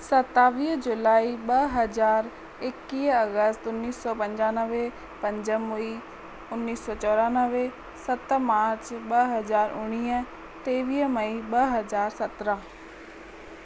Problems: constant background noise, echo